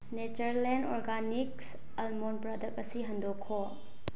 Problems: low volume